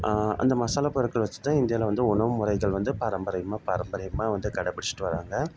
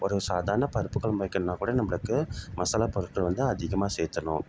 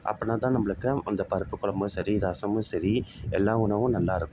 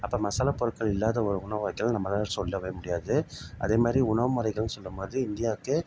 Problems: constant background noise